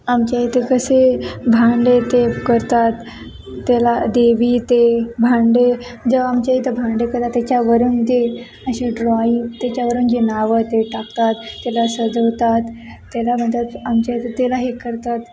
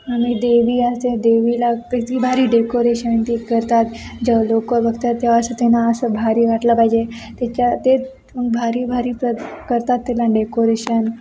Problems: constant background noise, background conversations at intervals